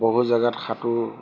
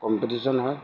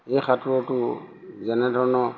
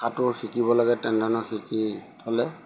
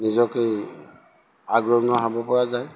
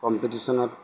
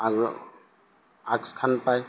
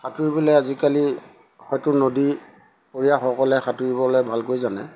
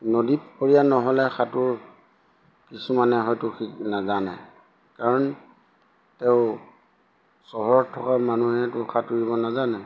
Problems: background sounds at intervals